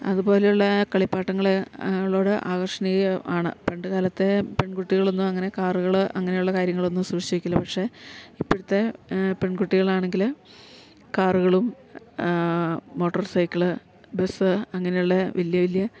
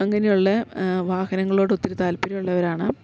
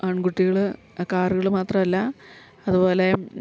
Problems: none marked